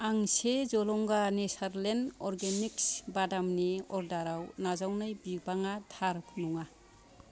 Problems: background conversations at intervals